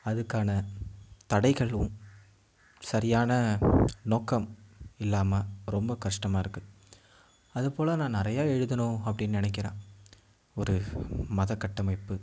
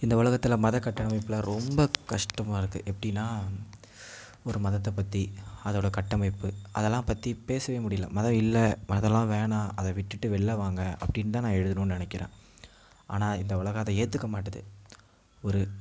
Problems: background sounds at intervals